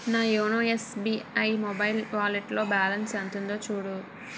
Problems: background sounds at intervals